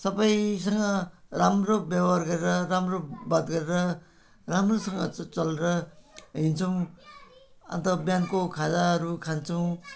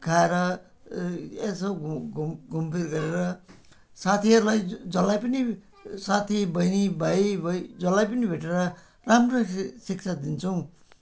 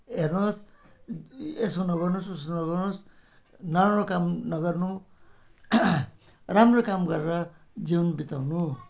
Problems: constant background noise